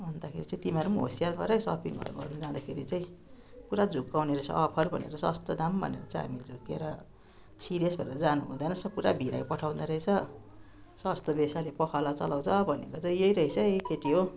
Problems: continuous background conversations